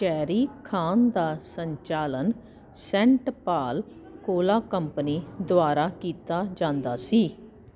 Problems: none marked